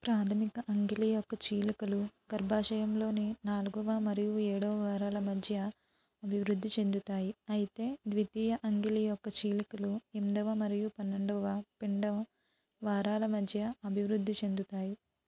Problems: low volume